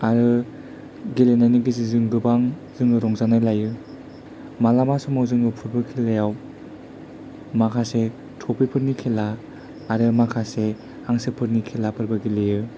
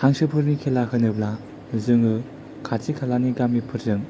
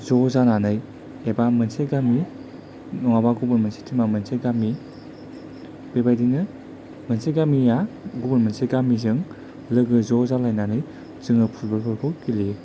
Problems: low volume